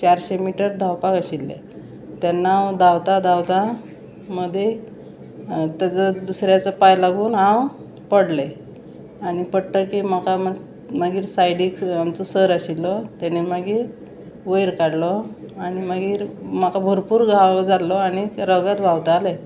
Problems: constant background noise